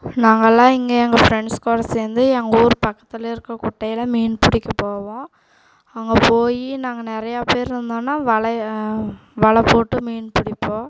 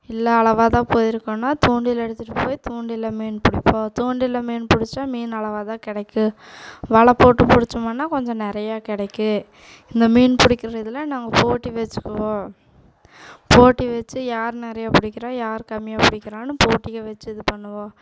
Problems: background sounds at intervals